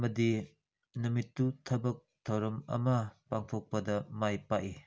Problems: none marked